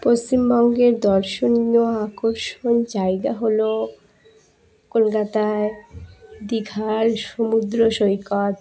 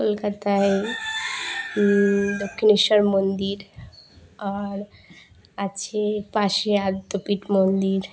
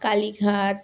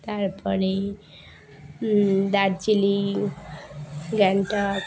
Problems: none marked